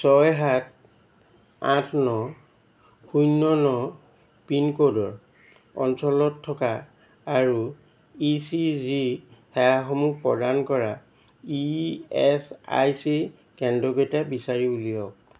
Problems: constant background noise